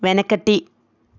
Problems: none marked